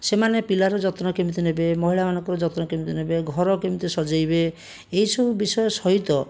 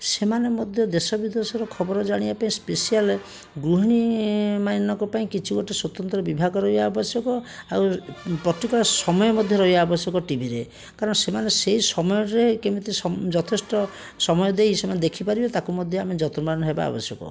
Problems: background sounds at intervals